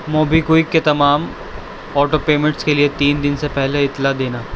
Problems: constant background noise